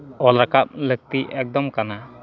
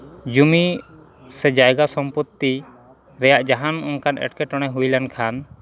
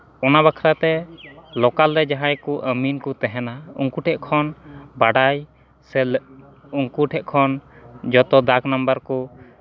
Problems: background conversations at intervals